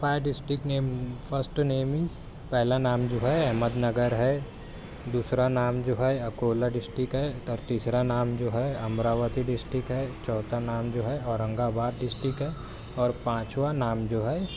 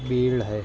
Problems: none marked